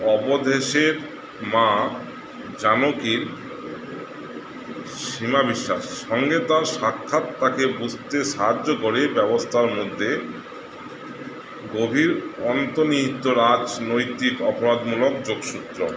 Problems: constant background noise